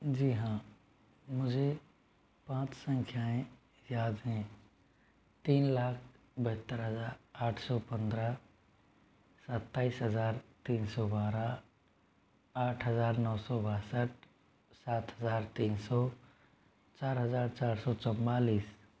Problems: background sounds at intervals